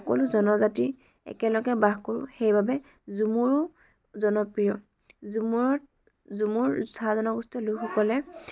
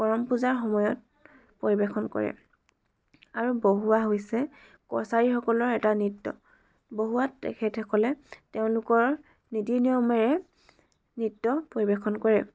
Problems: background sounds at intervals, background conversations at intervals